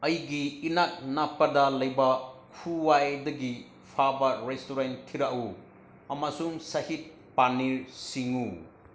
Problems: low volume